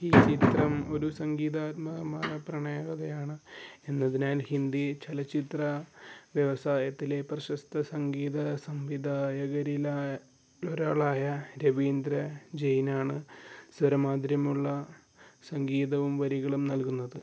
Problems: low volume